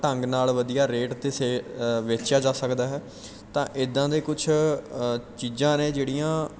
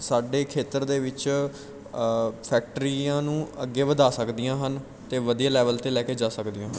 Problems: background sounds at intervals